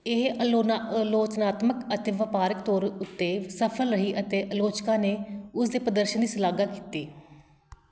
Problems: background sounds at intervals